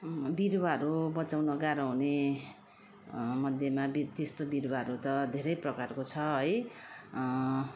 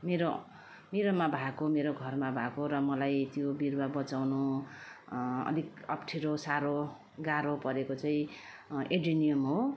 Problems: none marked